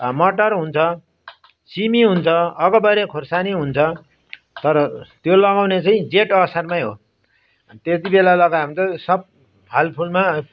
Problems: none marked